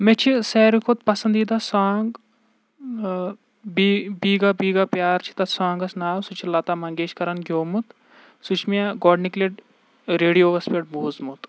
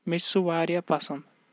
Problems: none marked